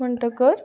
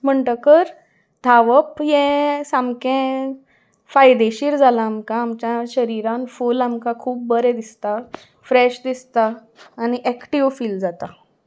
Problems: background sounds at intervals